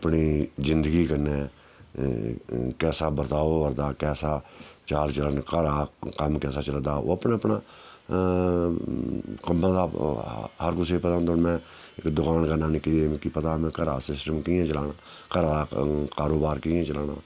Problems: none marked